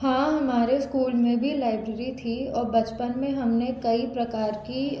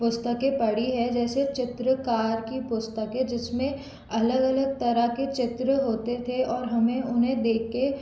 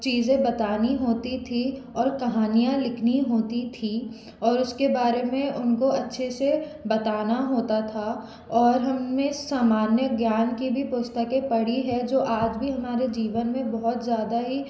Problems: constant background noise